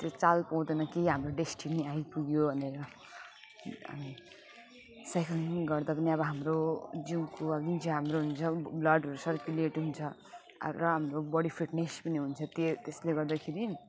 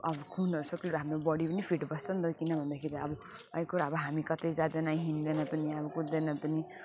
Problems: constant background noise, continuous background conversations, low volume